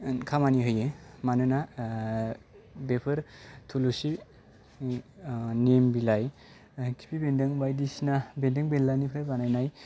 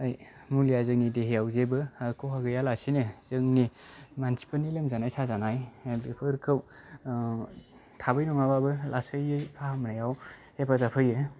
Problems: low volume